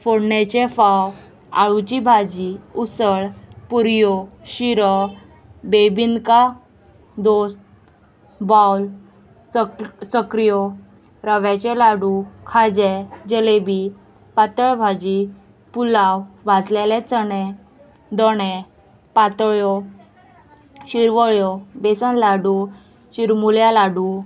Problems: constant background noise